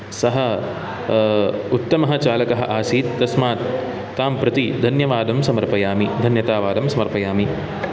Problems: background sounds at intervals